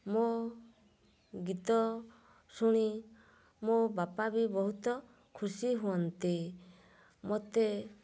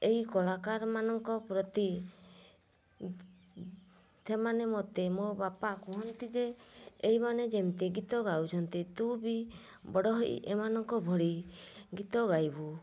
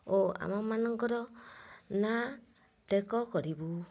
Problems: low volume